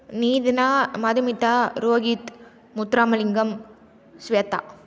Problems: none marked